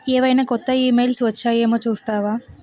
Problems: constant background noise